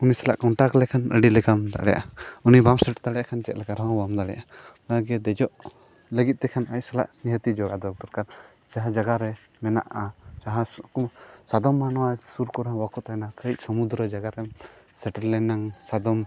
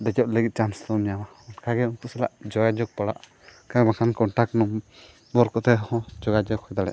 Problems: constant background noise